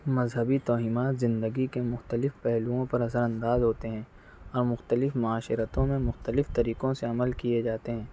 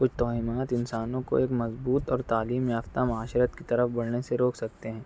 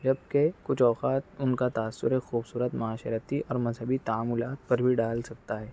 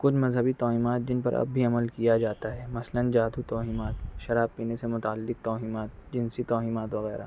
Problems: none marked